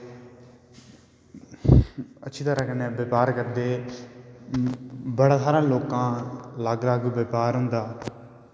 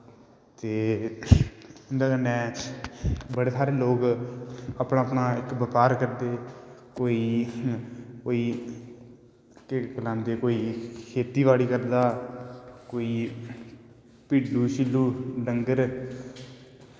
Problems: background sounds at intervals, echo